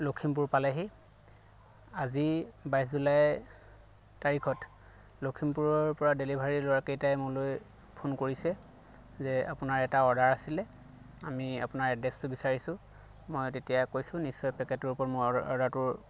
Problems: none marked